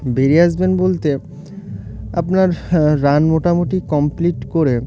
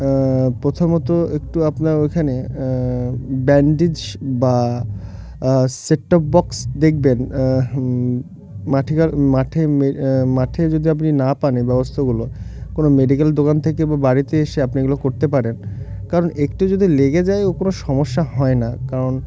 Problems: none marked